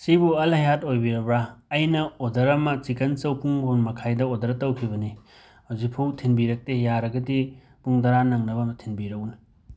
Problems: background sounds at intervals